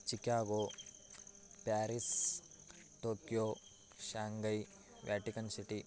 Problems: background sounds at intervals, low volume